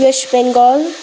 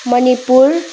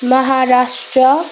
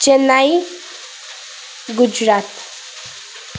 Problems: constant background noise